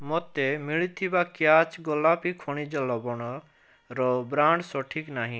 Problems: none marked